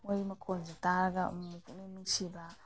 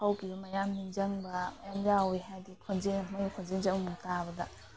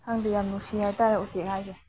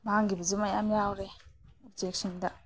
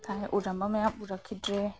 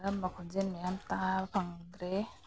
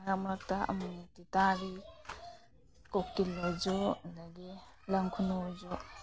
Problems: background sounds at intervals